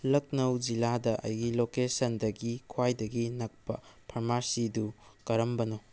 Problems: none marked